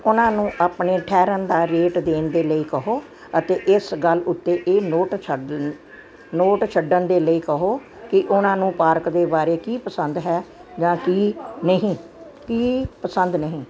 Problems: constant background noise, background conversations at intervals